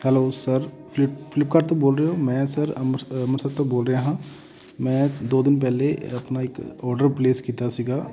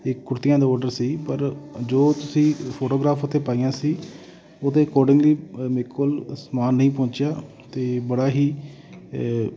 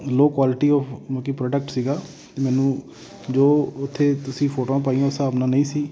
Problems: constant background noise